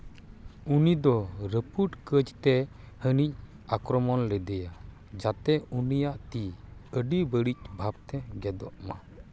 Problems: none marked